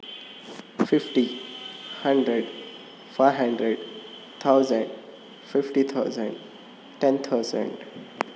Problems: constant background noise